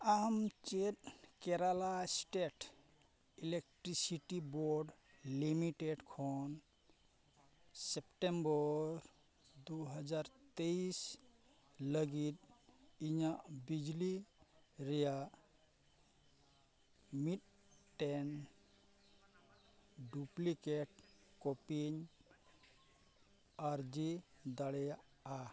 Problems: background sounds at intervals